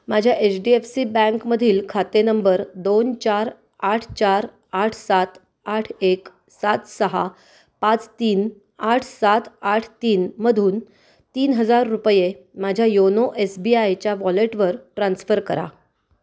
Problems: none marked